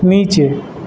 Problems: constant background noise